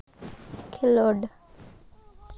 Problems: constant background noise